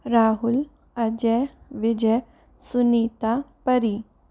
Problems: none marked